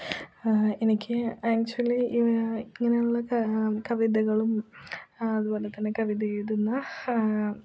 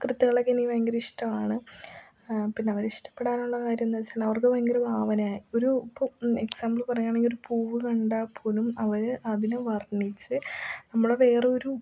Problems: low volume